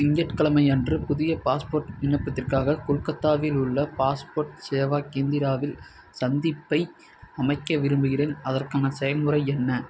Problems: none marked